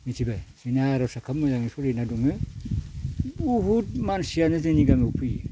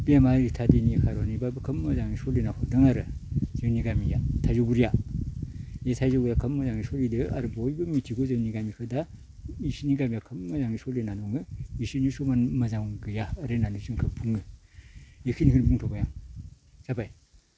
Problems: none marked